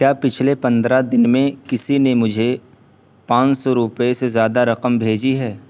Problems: background sounds at intervals, low volume